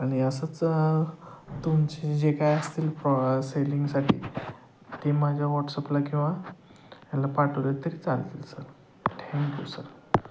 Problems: constant background noise